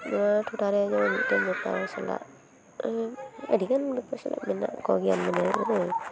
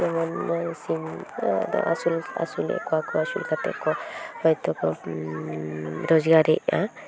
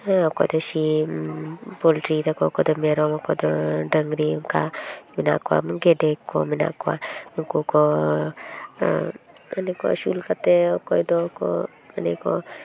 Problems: constant background noise, continuous background conversations